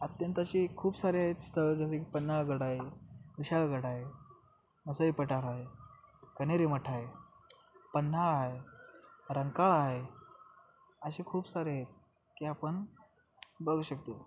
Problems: constant background noise